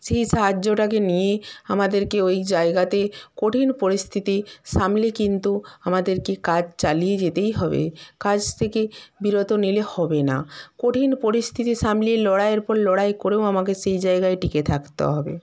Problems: none marked